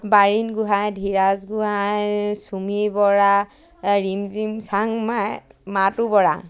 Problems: none marked